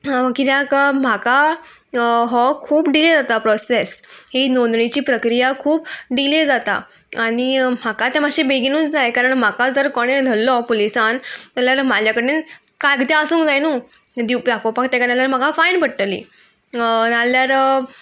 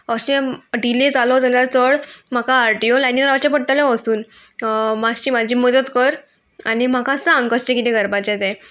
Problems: constant background noise